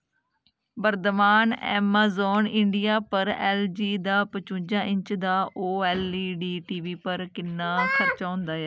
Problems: none marked